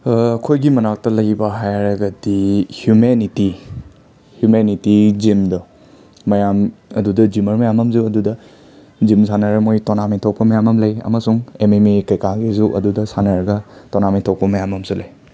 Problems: none marked